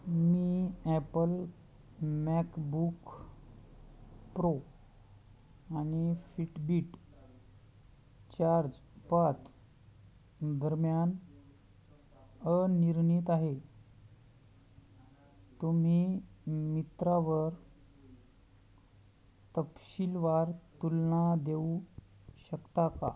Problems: none marked